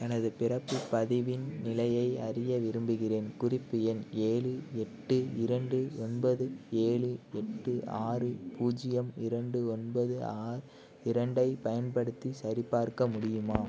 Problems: constant background noise